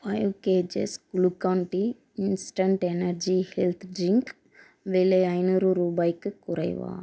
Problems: none marked